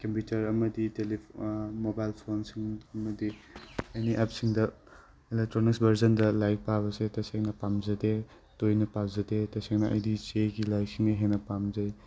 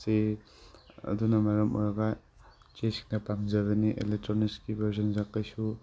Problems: none marked